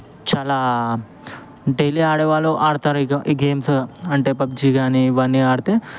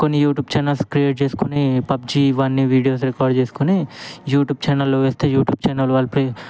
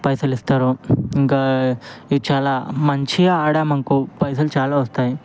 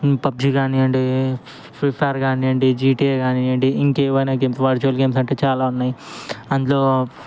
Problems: background conversations at intervals